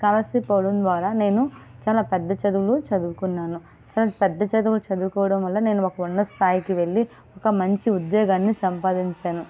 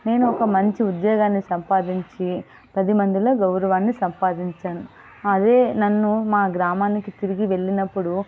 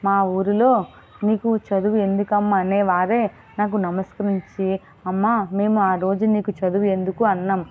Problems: none marked